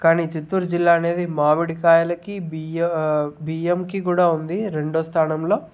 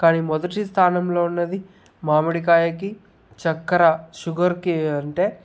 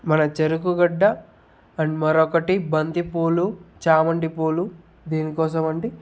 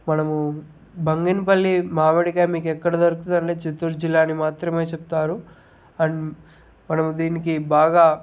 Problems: background sounds at intervals